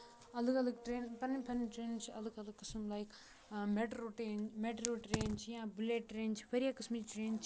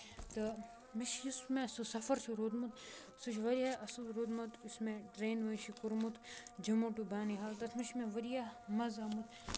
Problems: constant background noise, low volume